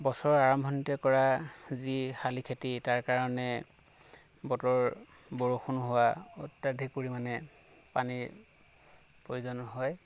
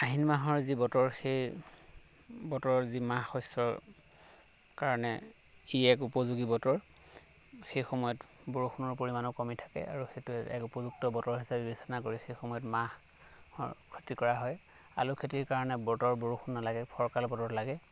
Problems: none marked